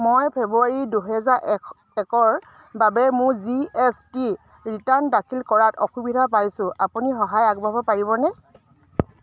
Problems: none marked